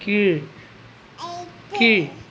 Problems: background conversations at intervals